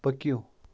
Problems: background sounds at intervals